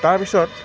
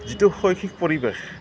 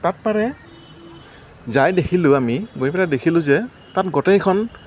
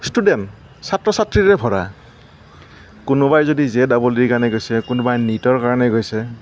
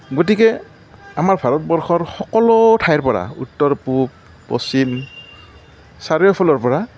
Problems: background sounds at intervals, background conversations at intervals